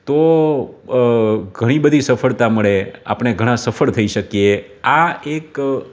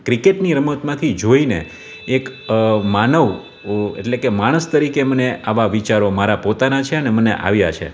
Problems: none marked